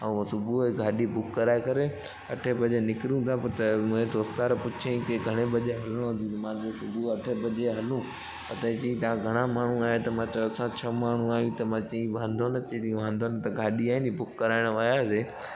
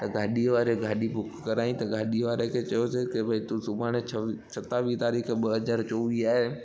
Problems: constant background noise, echo